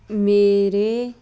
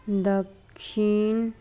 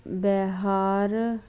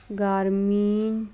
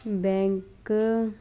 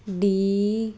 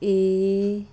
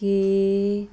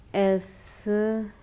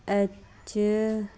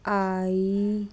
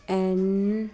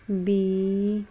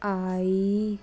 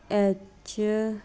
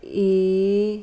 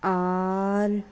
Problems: none marked